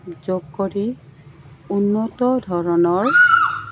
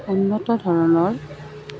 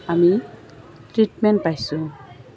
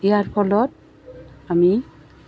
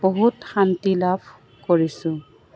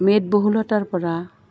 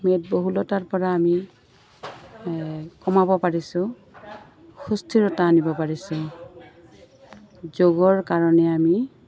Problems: constant background noise, background conversations at intervals